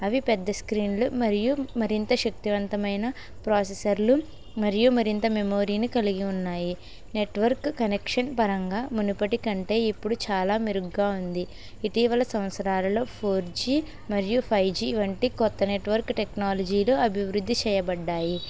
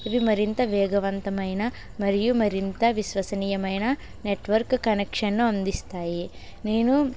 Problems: constant background noise